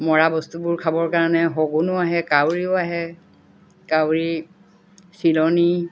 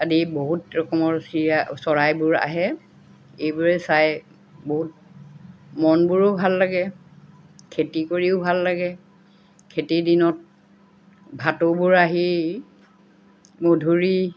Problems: none marked